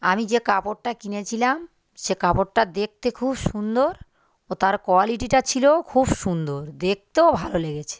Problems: constant background noise